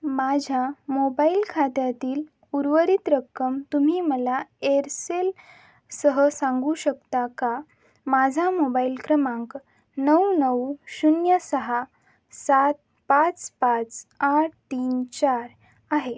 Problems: background sounds at intervals